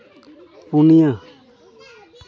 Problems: continuous background conversations